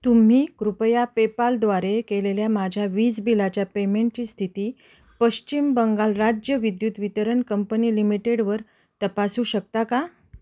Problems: constant background noise